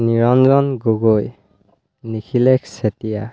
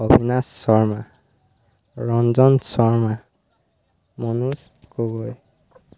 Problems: constant background noise